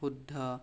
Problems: none marked